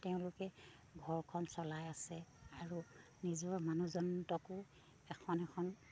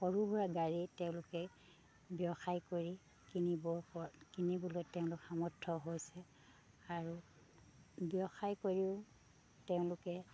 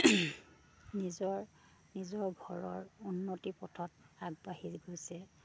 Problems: low volume